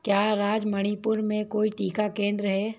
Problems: none marked